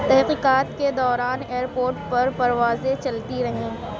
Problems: constant background noise, low volume